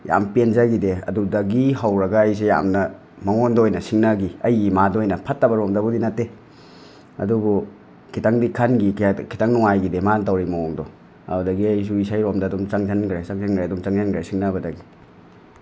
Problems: none marked